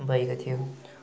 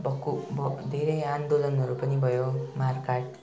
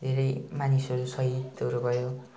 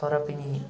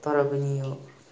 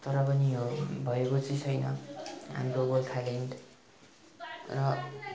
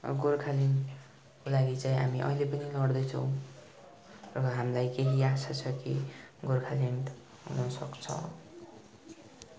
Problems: continuous background conversations